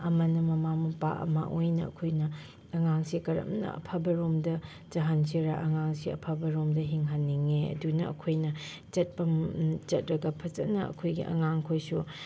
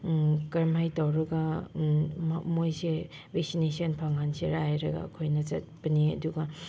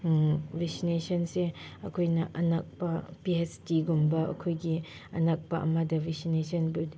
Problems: background sounds at intervals